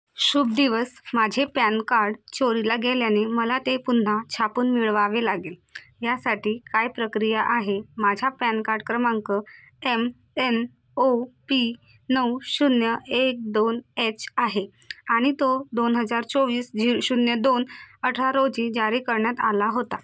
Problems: constant background noise